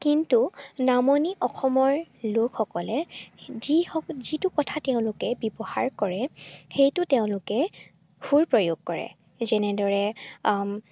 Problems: none marked